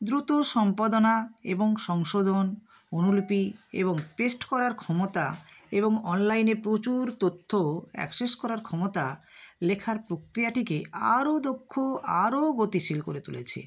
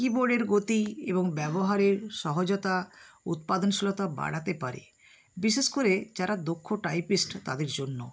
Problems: none marked